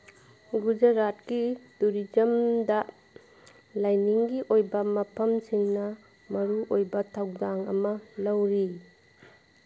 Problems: background sounds at intervals